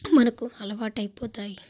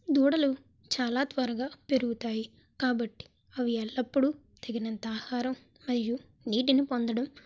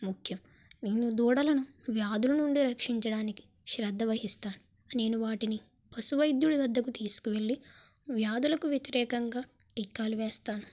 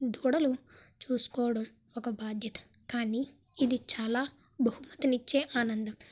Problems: background sounds at intervals